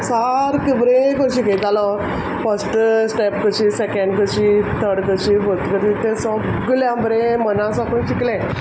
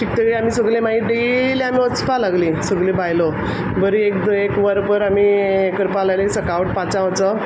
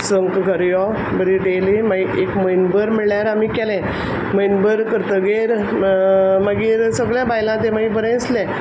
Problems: background sounds at intervals